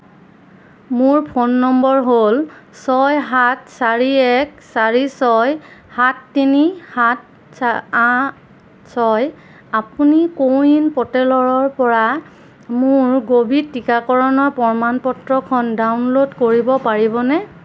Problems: none marked